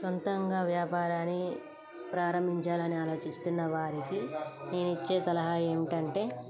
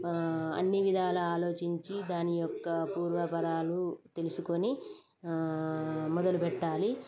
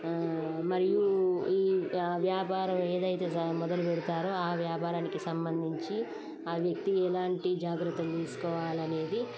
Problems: constant background noise